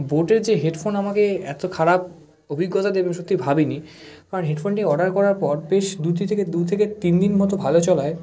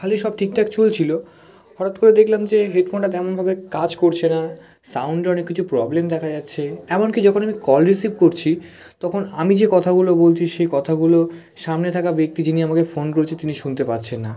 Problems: none marked